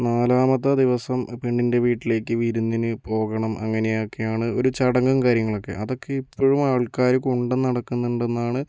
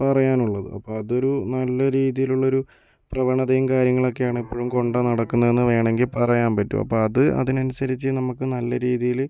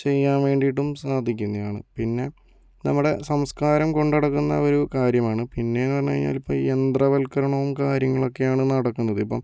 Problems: none marked